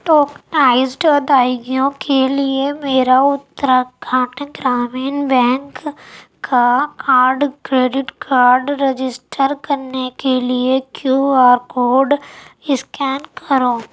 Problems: none marked